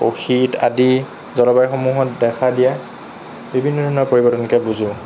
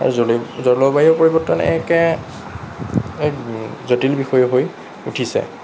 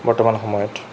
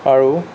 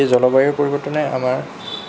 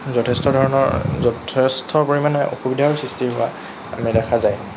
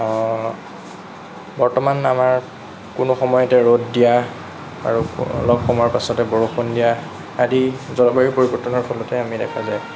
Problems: none marked